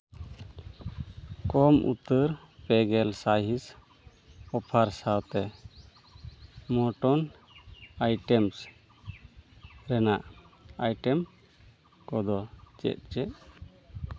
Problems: none marked